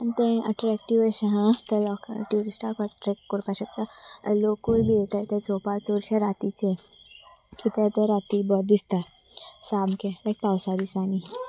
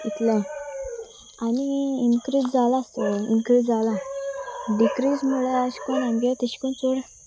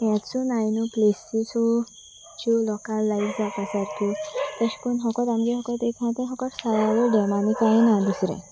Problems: constant background noise, background conversations at intervals